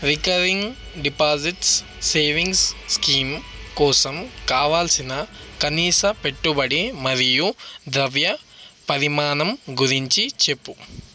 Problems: background sounds at intervals